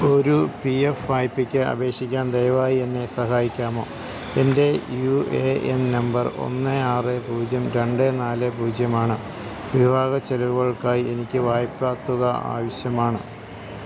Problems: constant background noise